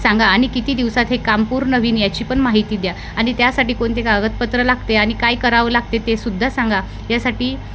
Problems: constant background noise